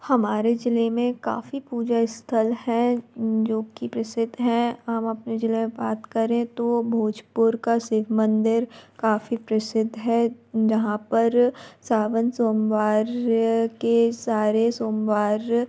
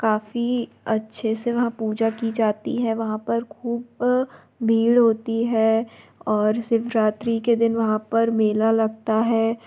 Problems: constant background noise